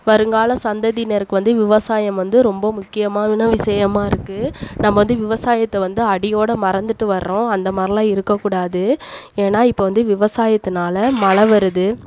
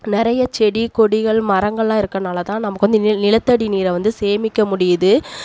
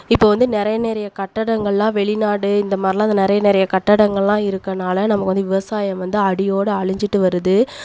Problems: none marked